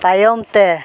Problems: constant background noise